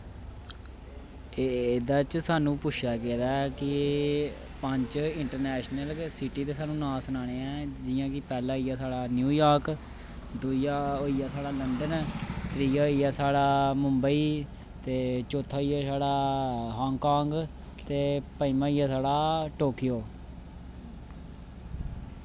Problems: constant background noise